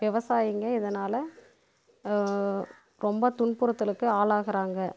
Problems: background sounds at intervals